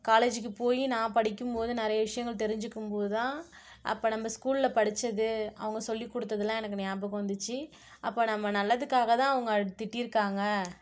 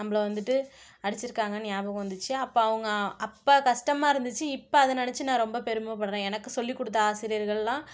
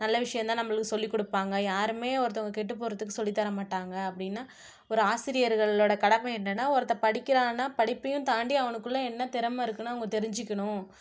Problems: none marked